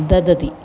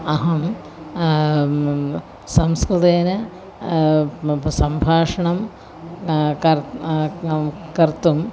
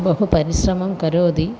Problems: none marked